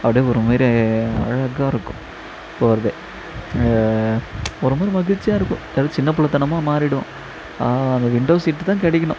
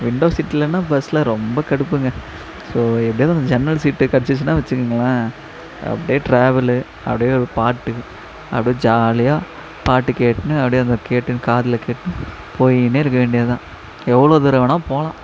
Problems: constant background noise